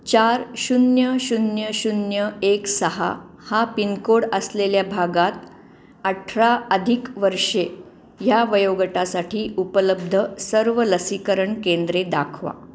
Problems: none marked